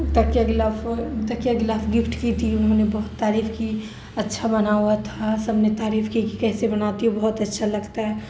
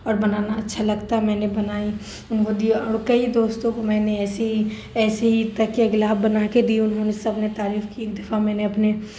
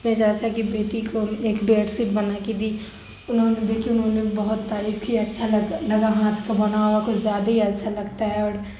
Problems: constant background noise